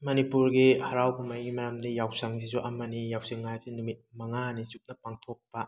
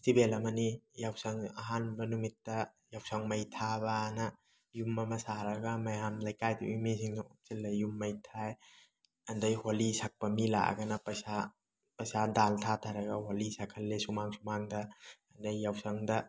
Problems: none marked